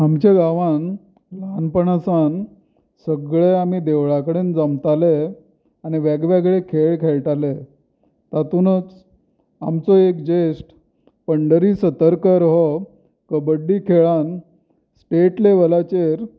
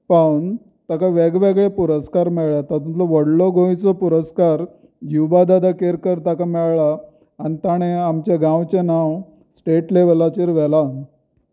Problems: constant background noise